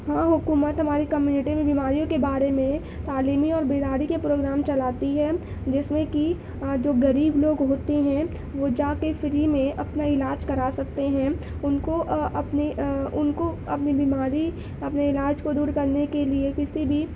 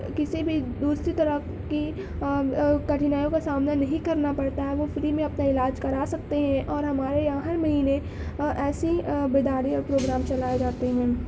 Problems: background sounds at intervals